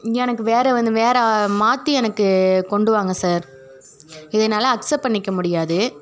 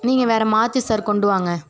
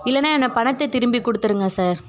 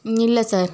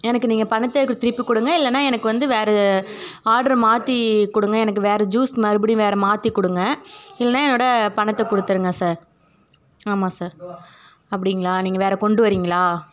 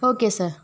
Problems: none marked